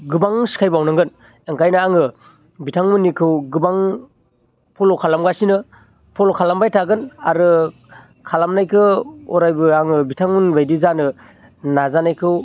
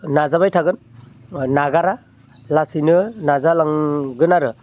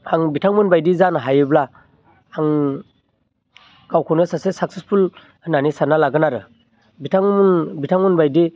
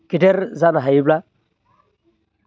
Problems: constant background noise